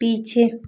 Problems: none marked